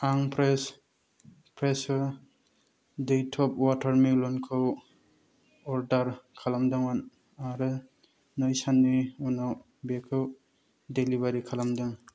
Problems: low volume